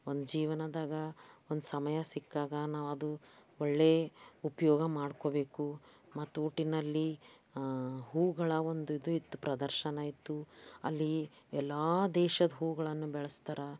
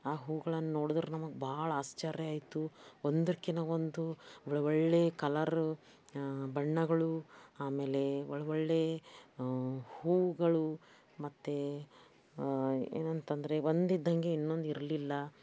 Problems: background sounds at intervals